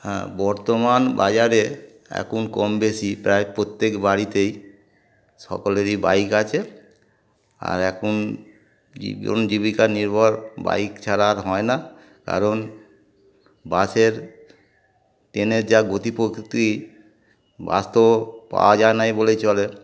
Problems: constant background noise